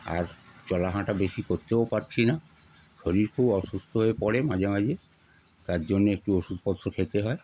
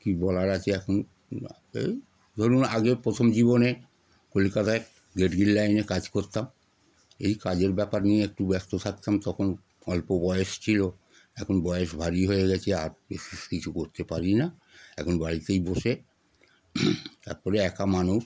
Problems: background sounds at intervals